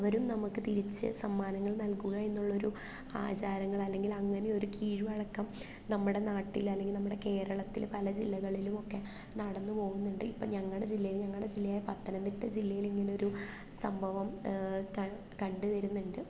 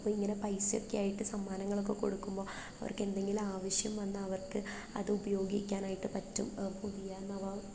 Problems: low volume